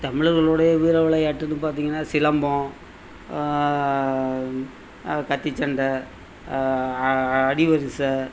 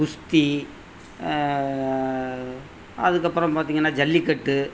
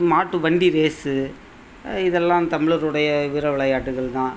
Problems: none marked